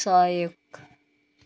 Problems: none marked